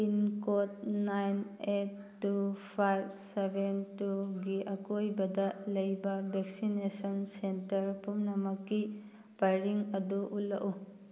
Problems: none marked